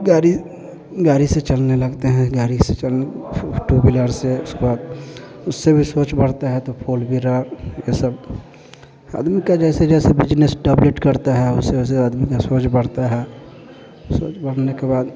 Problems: constant background noise, continuous background conversations